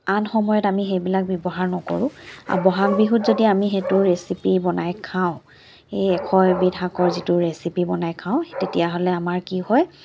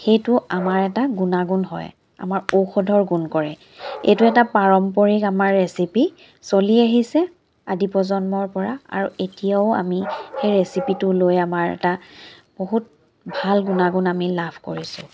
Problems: none marked